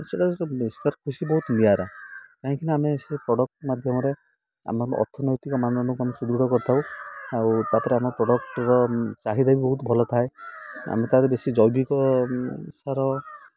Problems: none marked